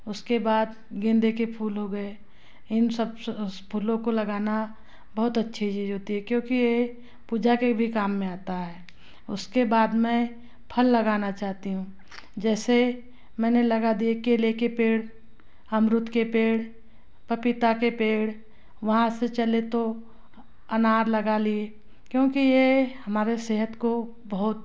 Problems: constant background noise